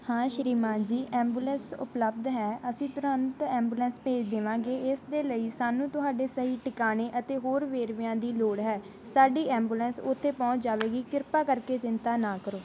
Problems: background sounds at intervals